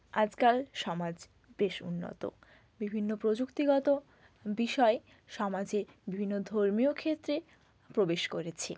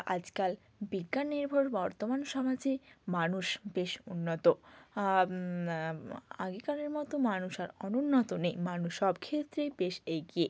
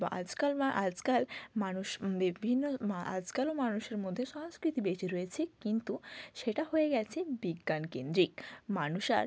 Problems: background sounds at intervals